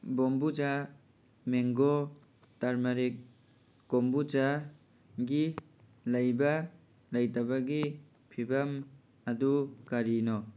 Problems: background sounds at intervals